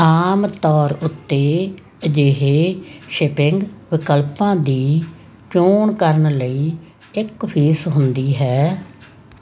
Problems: constant background noise